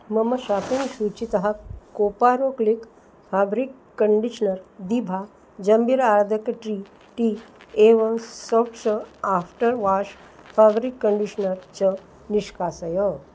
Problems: background sounds at intervals